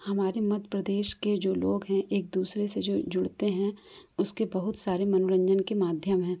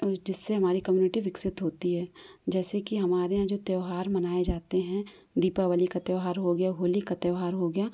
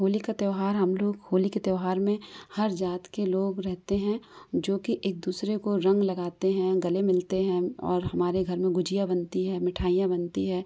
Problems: background sounds at intervals